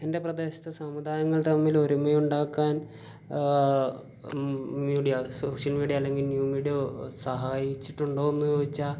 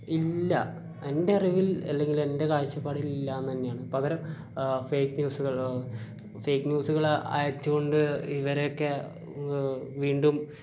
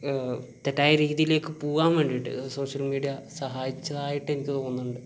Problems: constant background noise, low volume